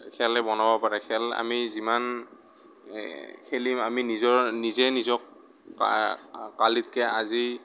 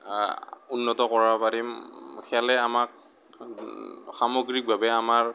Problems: none marked